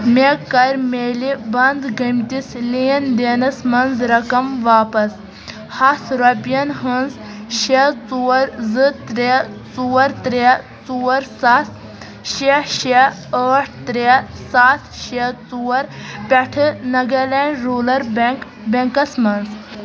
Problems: constant background noise